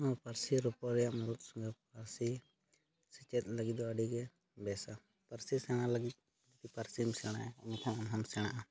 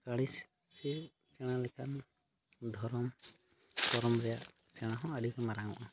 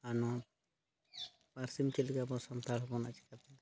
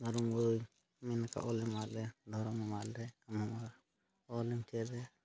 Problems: background sounds at intervals